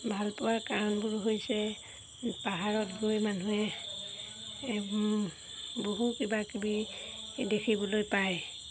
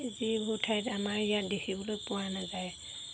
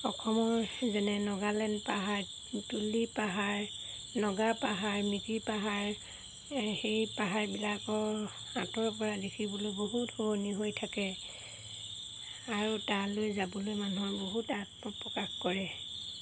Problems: background sounds at intervals